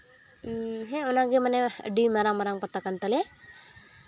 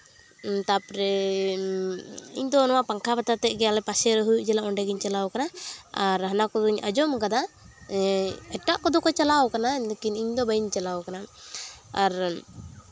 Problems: background sounds at intervals